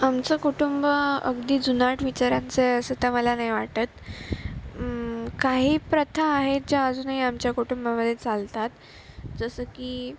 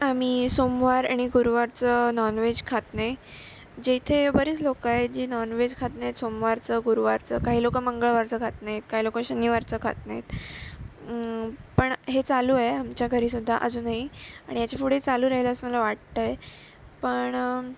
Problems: constant background noise